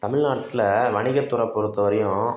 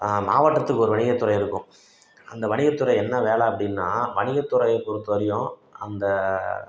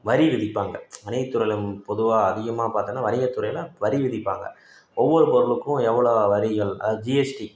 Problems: none marked